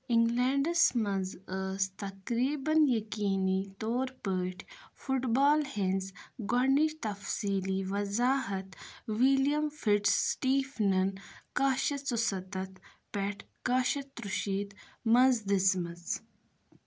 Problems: none marked